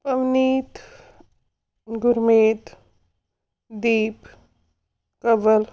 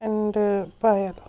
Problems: none marked